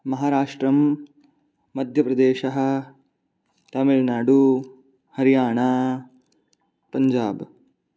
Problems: none marked